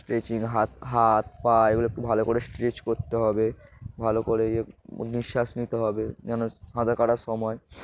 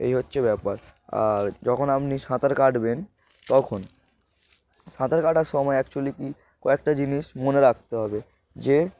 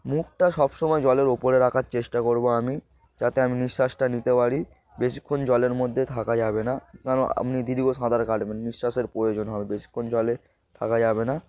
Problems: background sounds at intervals, background conversations at intervals